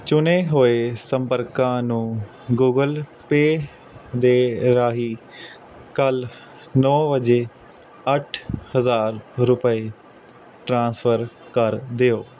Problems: constant background noise